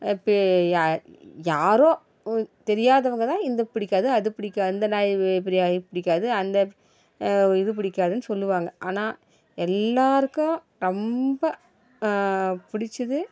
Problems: background sounds at intervals